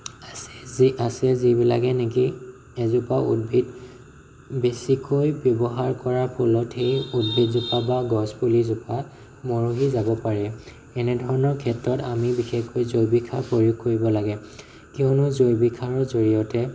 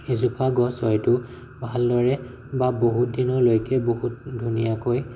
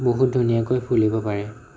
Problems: none marked